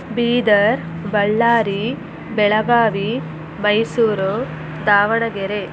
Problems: constant background noise